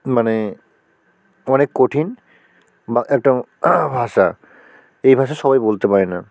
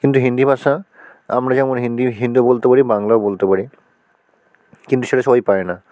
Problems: none marked